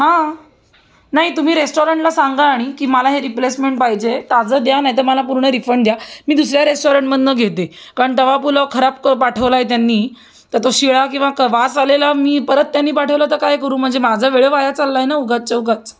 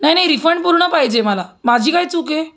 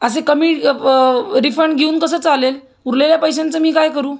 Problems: constant background noise